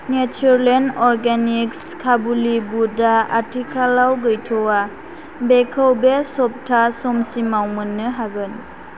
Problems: none marked